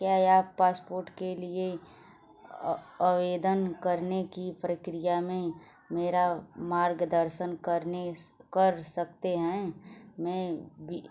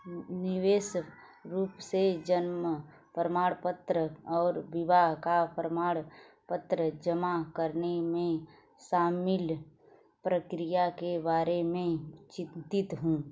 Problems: background sounds at intervals